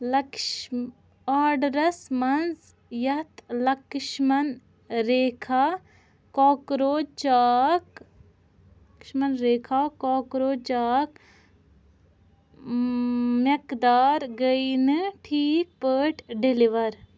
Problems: none marked